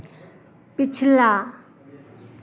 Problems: constant background noise